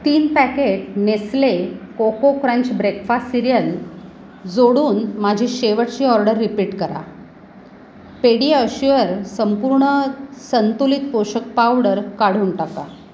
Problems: constant background noise